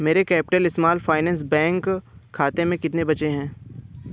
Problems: constant background noise